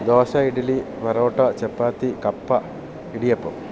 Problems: constant background noise